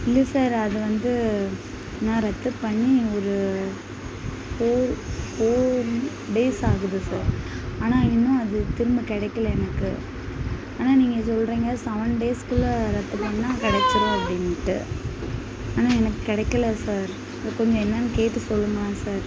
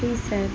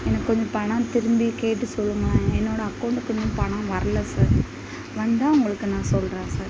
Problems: constant background noise, background conversations at intervals